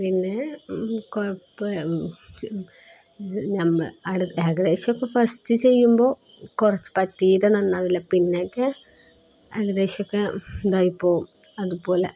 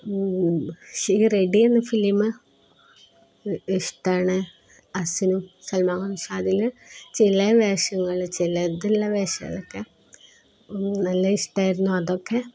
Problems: none marked